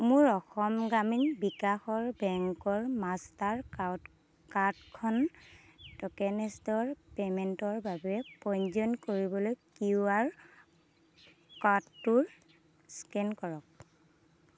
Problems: constant background noise